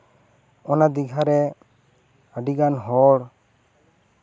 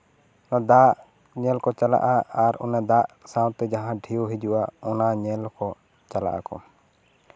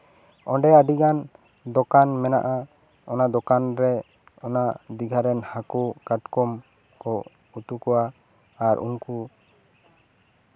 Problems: none marked